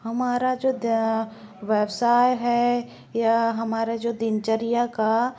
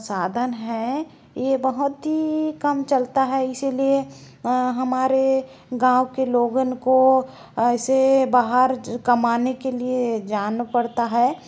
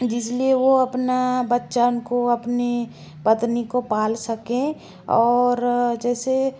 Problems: low volume